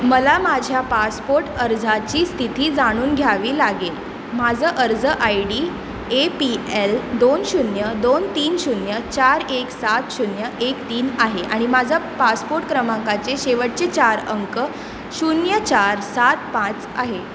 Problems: constant background noise